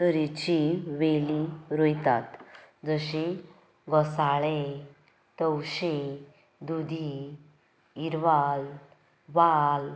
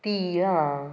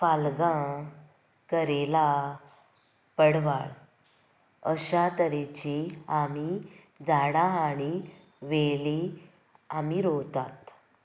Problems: background sounds at intervals